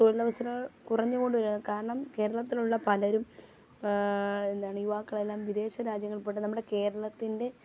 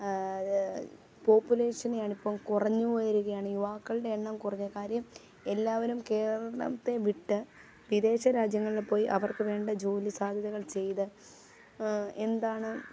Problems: background sounds at intervals, low volume